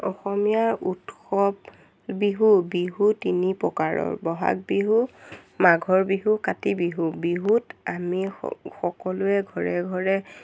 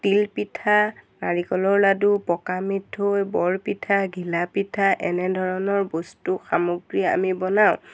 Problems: constant background noise